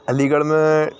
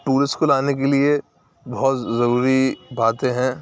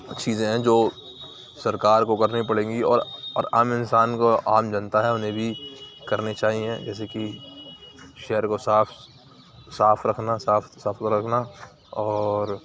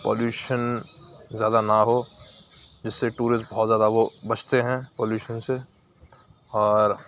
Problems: none marked